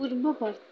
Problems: constant background noise